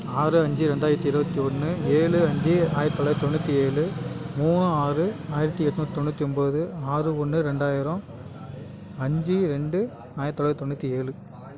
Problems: constant background noise, continuous background conversations